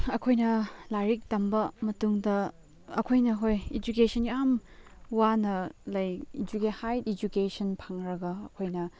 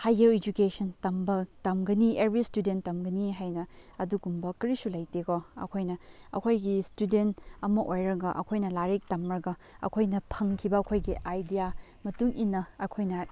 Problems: background sounds at intervals, background conversations at intervals